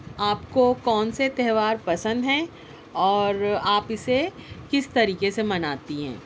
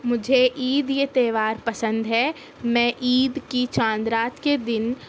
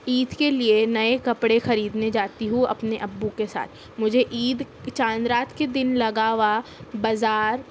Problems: background sounds at intervals